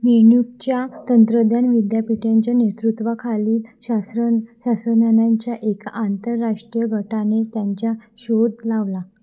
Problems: constant background noise, low volume